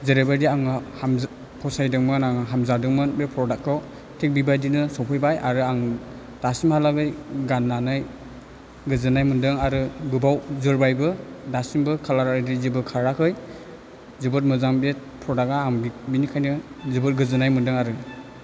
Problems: none marked